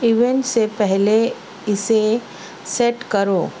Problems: constant background noise